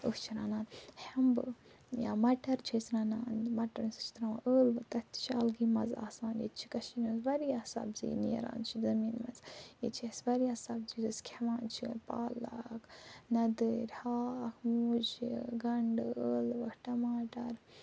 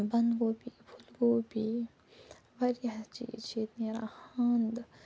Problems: none marked